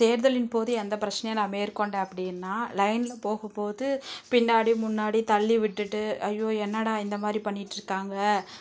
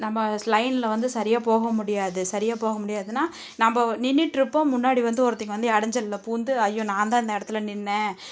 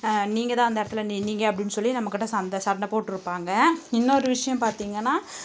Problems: none marked